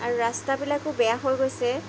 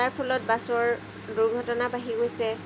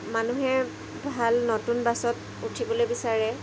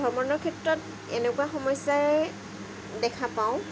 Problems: background sounds at intervals